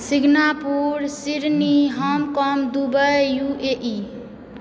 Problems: background sounds at intervals